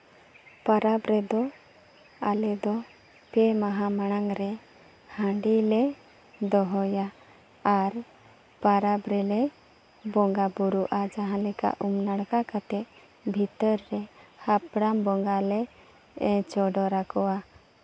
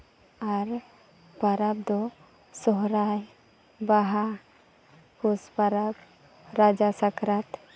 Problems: background sounds at intervals